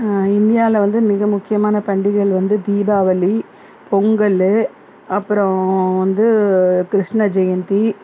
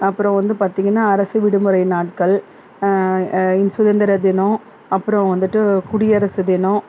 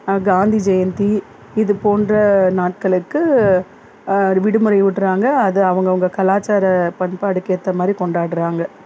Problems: none marked